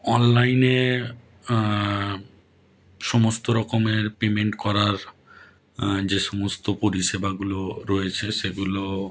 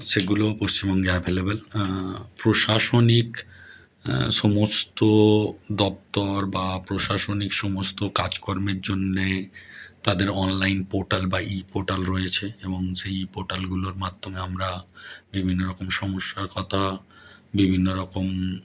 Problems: none marked